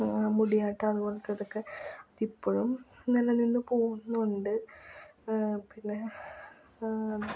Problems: low volume